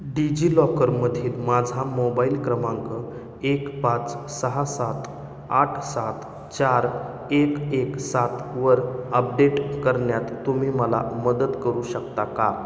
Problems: background sounds at intervals